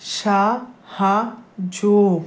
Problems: none marked